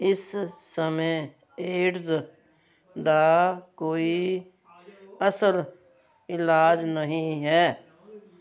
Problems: none marked